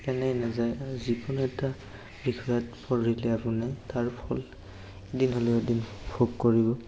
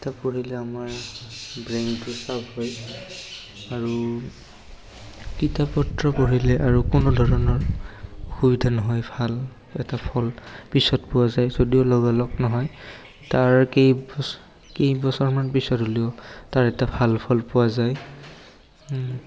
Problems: background sounds at intervals, background conversations at intervals, echo